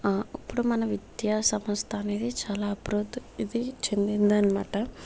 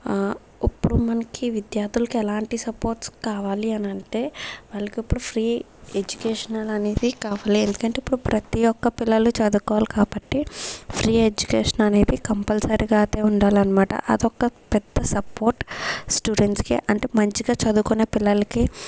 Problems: background sounds at intervals